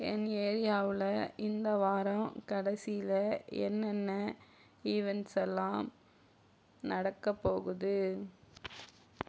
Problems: none marked